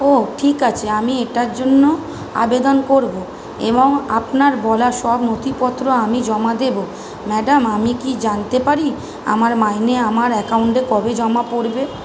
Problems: constant background noise